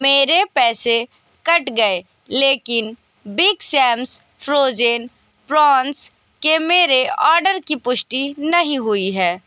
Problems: constant background noise